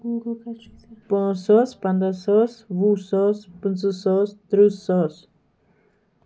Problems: background conversations at intervals